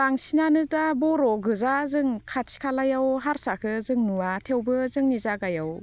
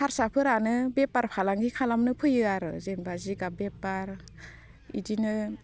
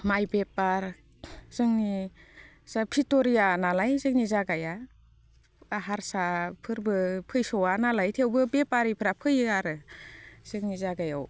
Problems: constant background noise